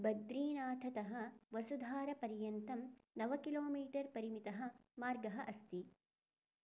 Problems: none marked